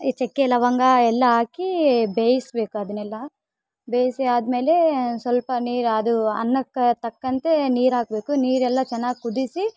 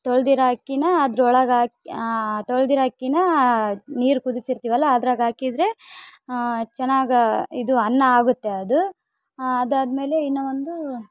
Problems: background sounds at intervals